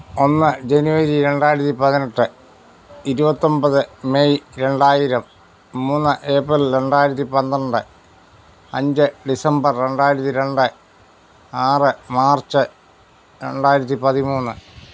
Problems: background sounds at intervals